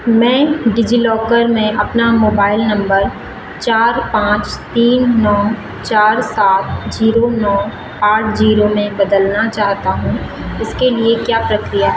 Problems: constant background noise